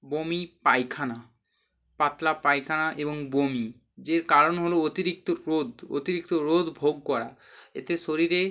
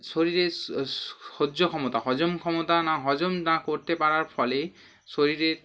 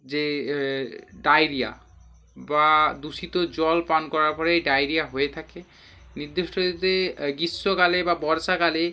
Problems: constant background noise